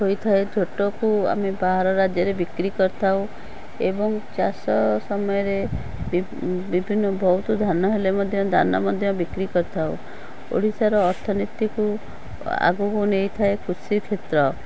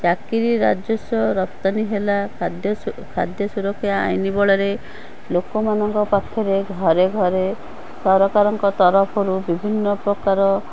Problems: none marked